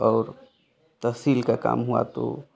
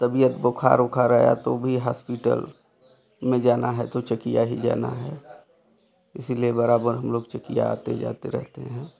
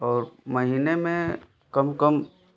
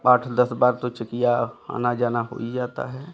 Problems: constant background noise, background conversations at intervals